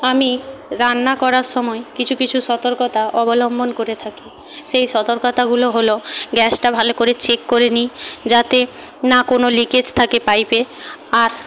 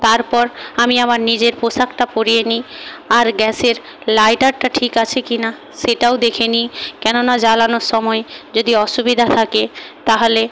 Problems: background sounds at intervals